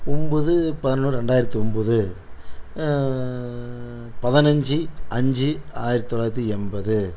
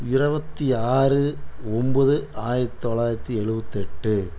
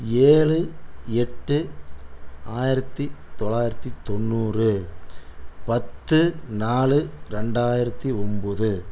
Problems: constant background noise